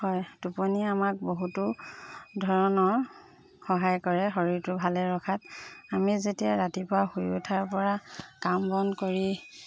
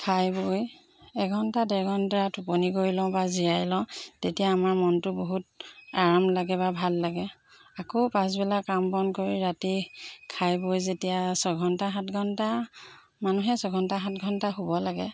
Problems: constant background noise